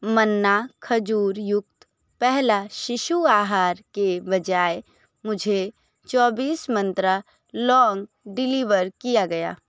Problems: none marked